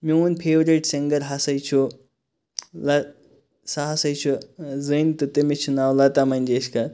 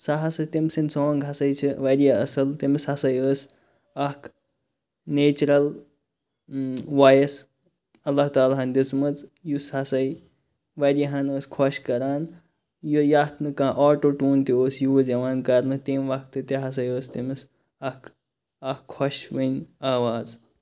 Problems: none marked